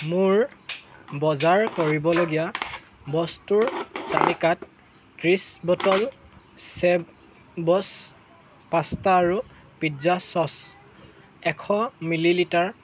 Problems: constant background noise